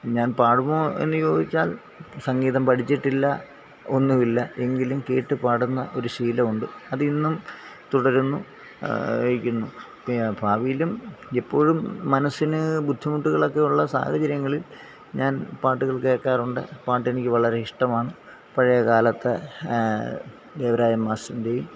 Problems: constant background noise